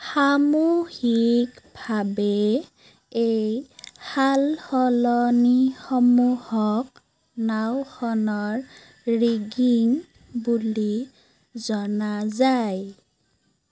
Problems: constant background noise